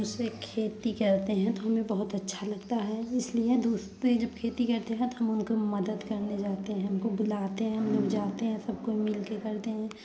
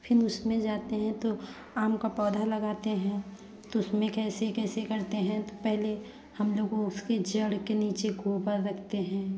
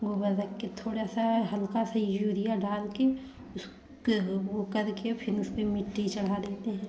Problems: background sounds at intervals, background conversations at intervals